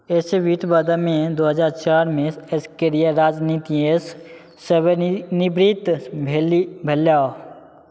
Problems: none marked